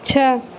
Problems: constant background noise